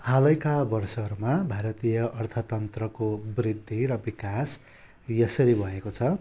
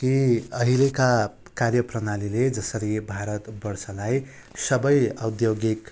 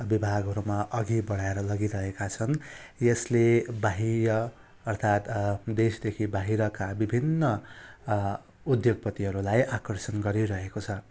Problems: background sounds at intervals